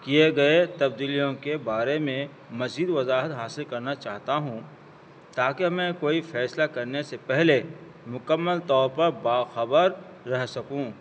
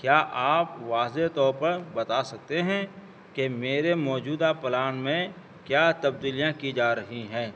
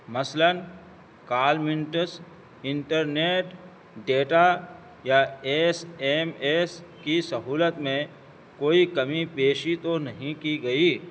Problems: constant background noise